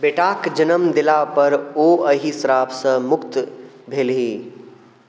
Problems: none marked